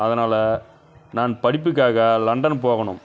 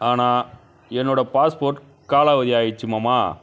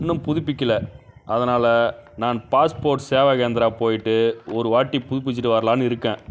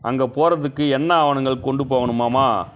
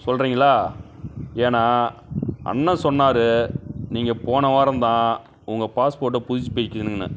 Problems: background sounds at intervals, background conversations at intervals